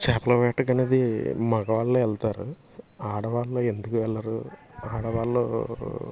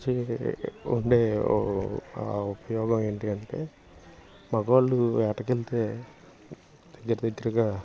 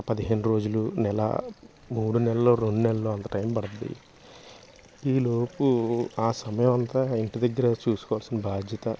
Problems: constant background noise